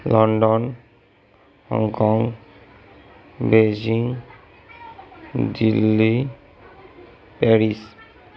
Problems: background conversations at intervals